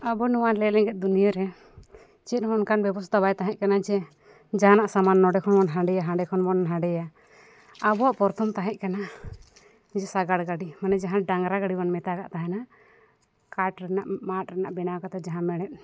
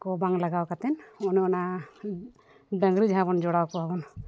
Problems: background sounds at intervals